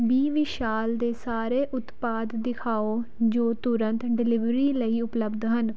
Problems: background sounds at intervals